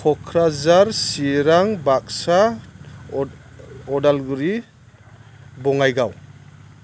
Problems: none marked